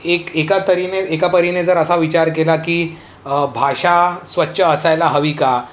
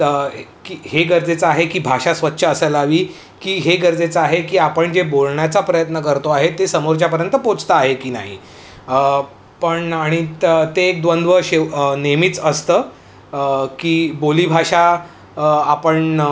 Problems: none marked